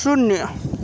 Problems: constant background noise